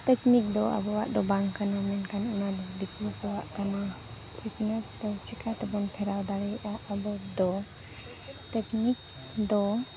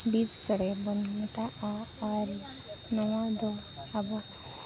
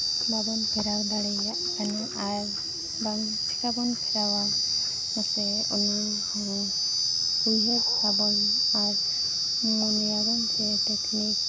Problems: background sounds at intervals, continuous background conversations